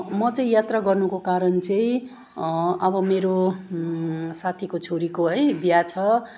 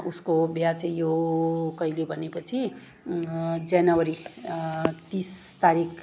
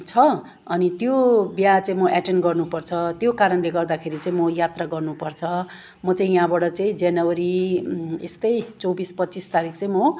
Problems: none marked